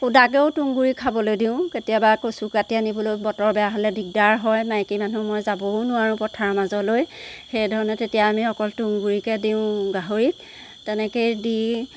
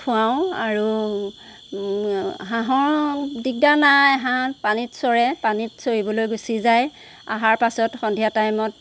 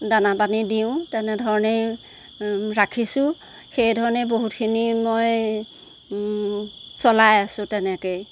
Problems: constant background noise